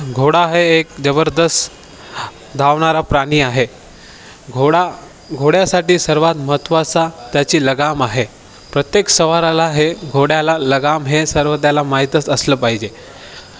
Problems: none marked